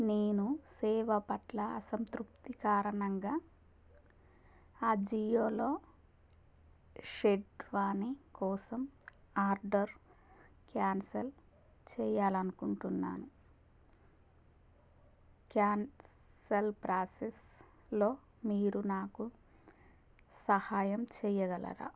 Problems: none marked